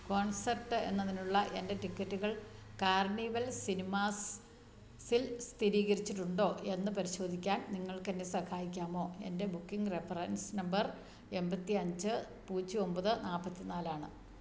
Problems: none marked